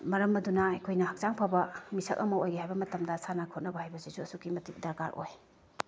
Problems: none marked